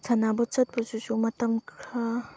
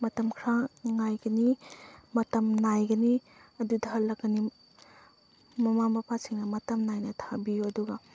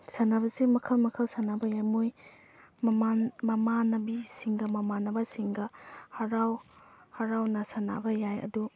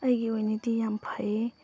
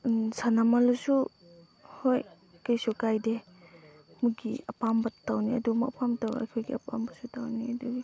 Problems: background sounds at intervals, background conversations at intervals